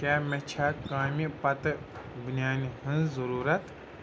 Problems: none marked